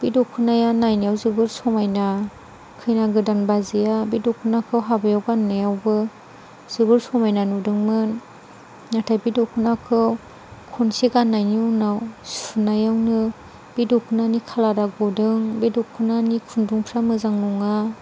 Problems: none marked